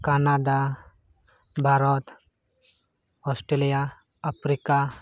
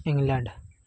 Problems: none marked